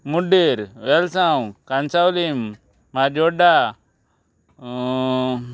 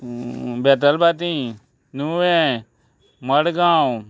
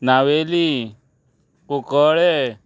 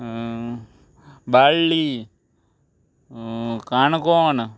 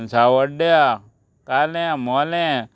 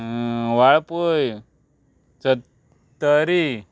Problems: background sounds at intervals